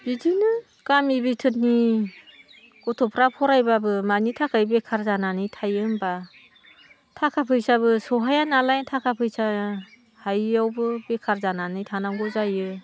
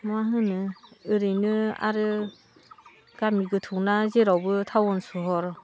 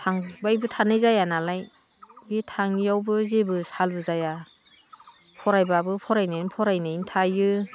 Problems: constant background noise